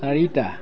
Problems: continuous background conversations